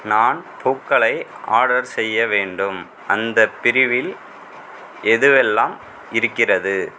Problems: none marked